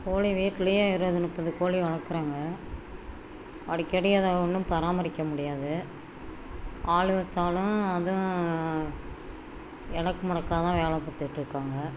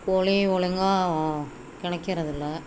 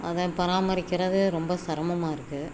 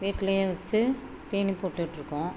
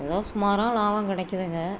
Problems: constant background noise